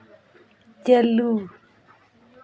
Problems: background conversations at intervals